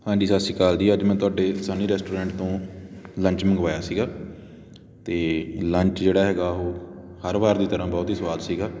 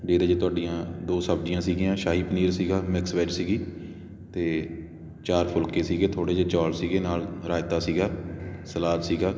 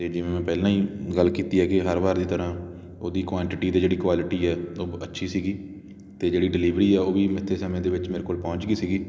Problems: none marked